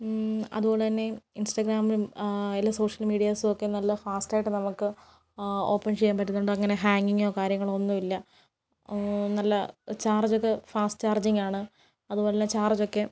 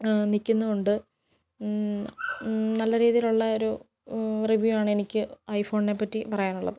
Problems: none marked